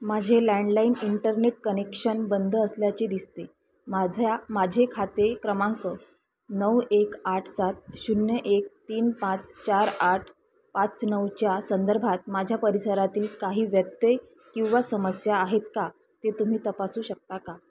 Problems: constant background noise